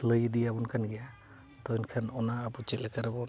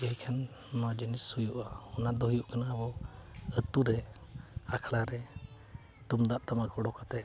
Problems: background sounds at intervals, continuous background conversations